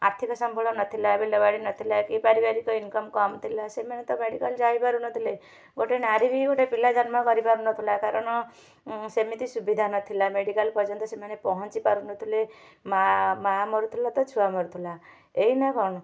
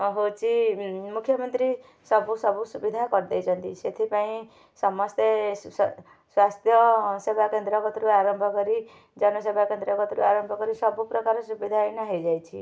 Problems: none marked